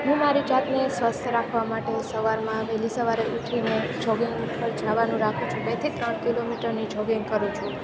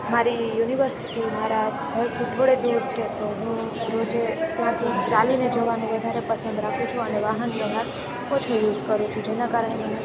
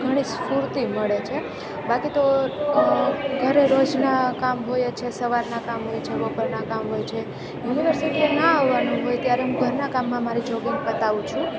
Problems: constant background noise